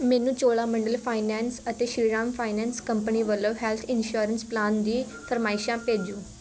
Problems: background sounds at intervals, continuous background conversations